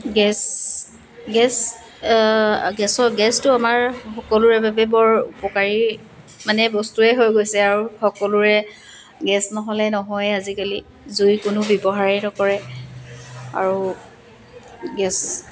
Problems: constant background noise, background conversations at intervals